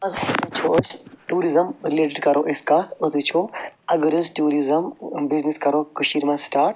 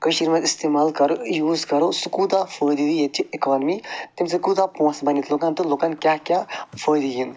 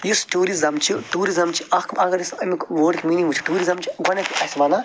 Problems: none marked